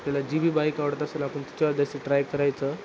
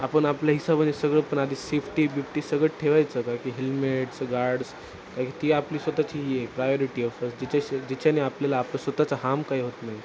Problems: constant background noise